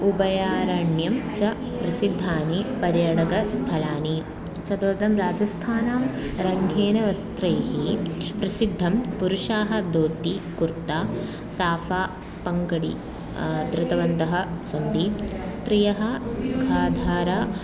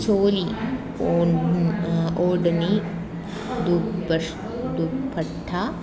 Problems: constant background noise, continuous background conversations